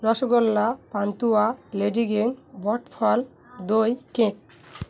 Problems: none marked